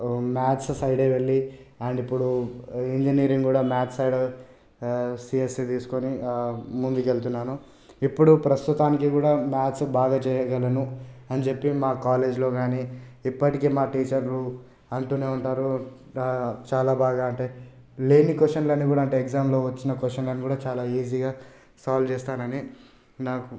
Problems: none marked